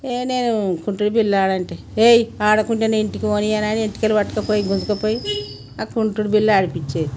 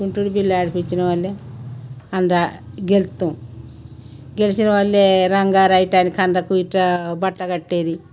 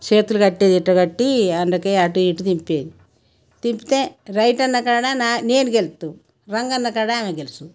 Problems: none marked